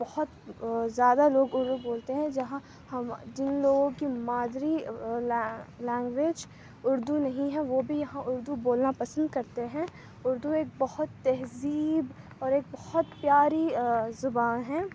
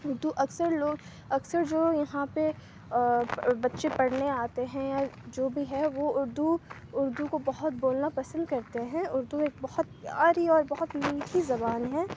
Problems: constant background noise